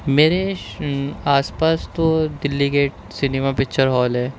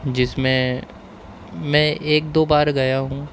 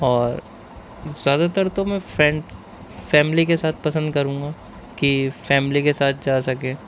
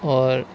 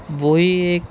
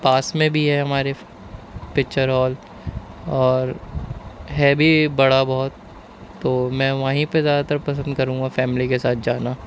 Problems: constant background noise